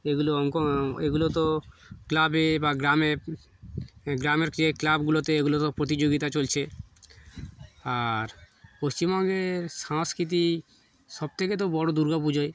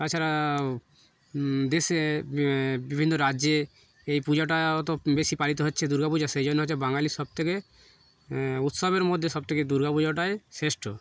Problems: background sounds at intervals